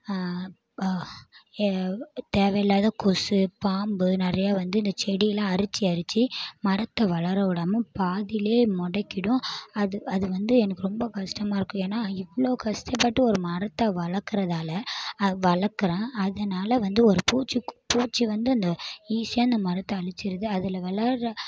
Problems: background sounds at intervals